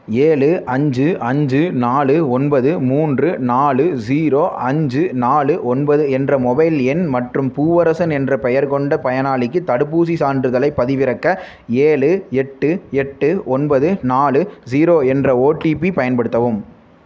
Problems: none marked